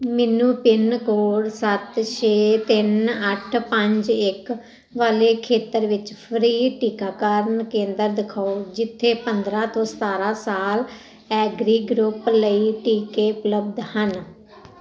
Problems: none marked